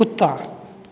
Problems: none marked